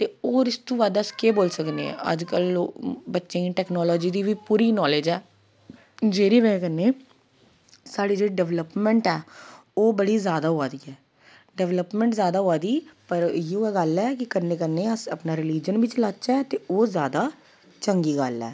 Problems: none marked